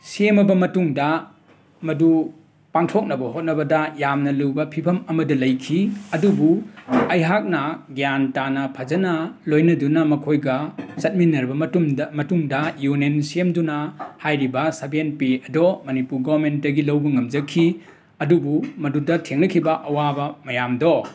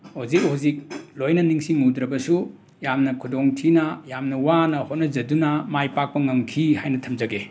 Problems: background sounds at intervals, background conversations at intervals